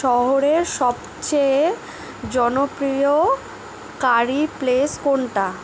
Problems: none marked